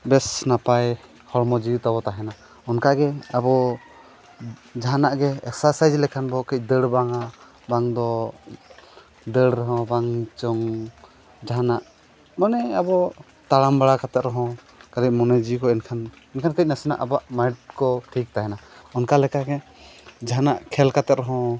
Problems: constant background noise